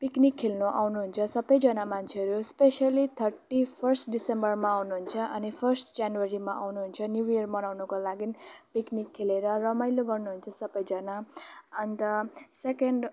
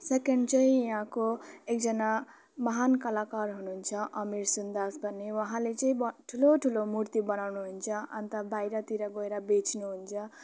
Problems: none marked